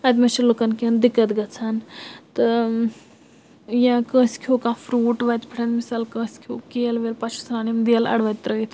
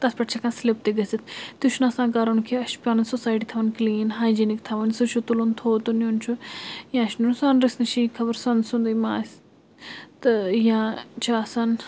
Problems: constant background noise